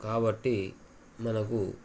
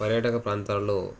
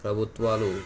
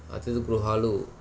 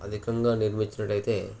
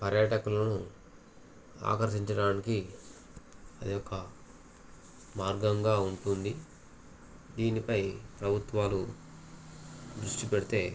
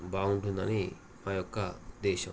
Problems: constant background noise